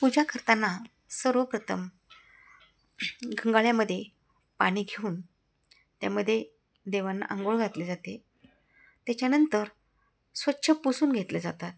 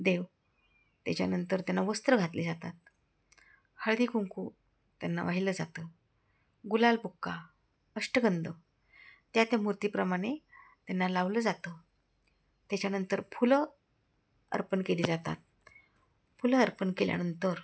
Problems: none marked